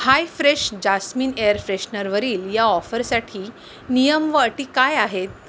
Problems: constant background noise